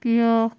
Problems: constant background noise